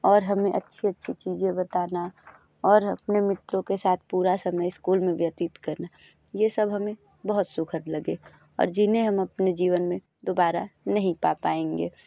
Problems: constant background noise